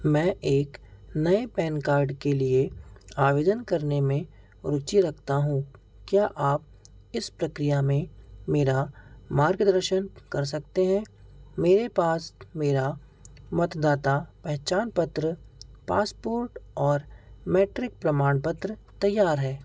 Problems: constant background noise